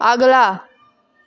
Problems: none marked